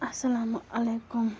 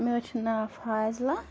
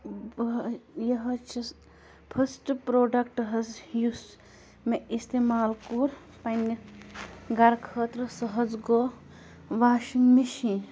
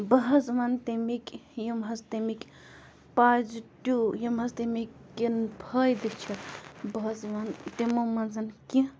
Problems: constant background noise